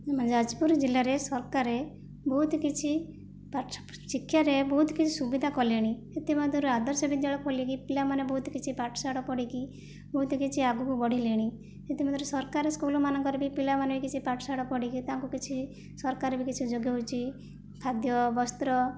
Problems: none marked